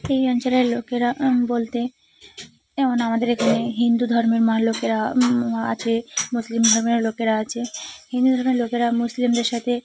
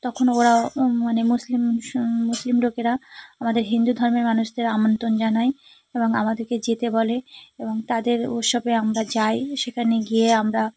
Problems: none marked